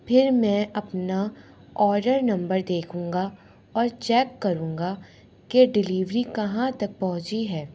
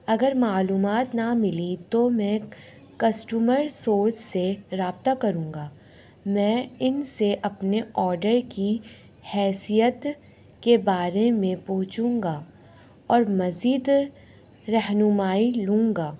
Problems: none marked